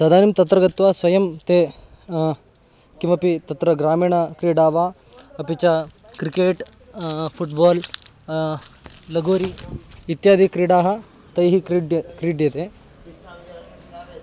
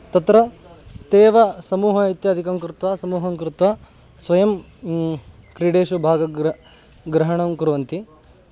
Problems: background sounds at intervals